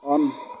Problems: none marked